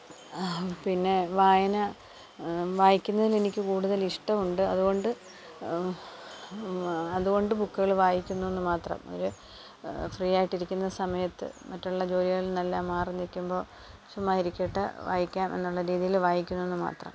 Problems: background sounds at intervals